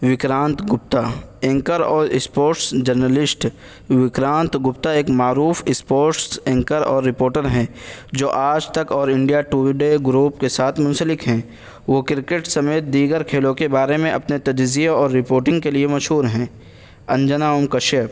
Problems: constant background noise